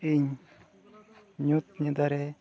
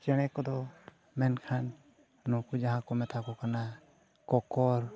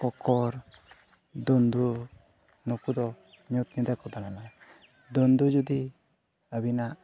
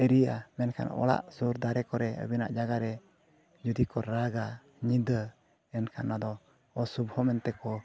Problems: constant background noise, background conversations at intervals